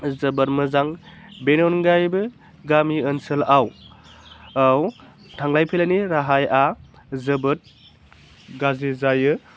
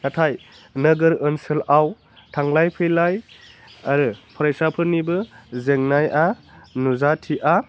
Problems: low volume